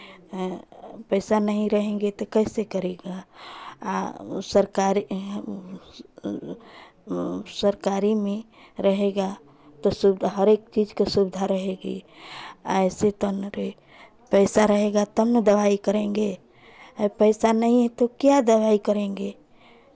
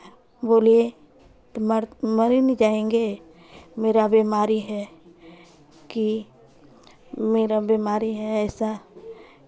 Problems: background sounds at intervals, continuous background conversations